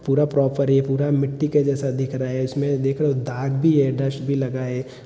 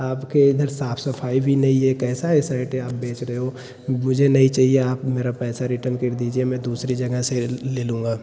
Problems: none marked